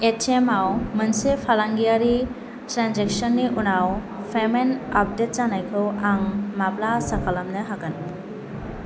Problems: constant background noise